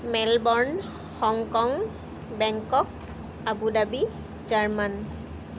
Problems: background sounds at intervals